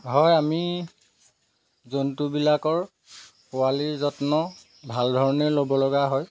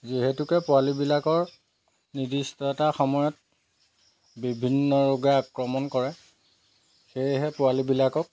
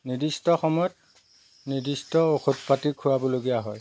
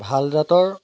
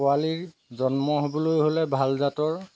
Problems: background sounds at intervals